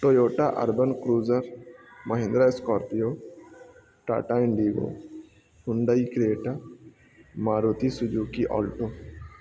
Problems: constant background noise, low volume